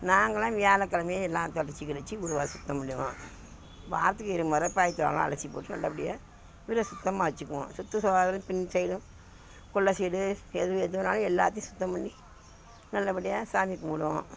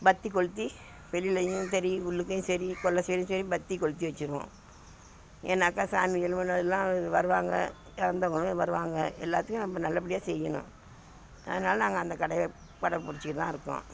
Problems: background sounds at intervals